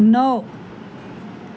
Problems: constant background noise